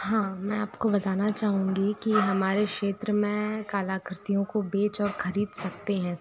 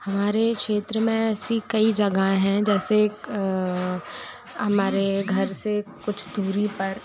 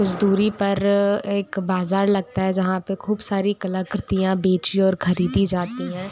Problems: background sounds at intervals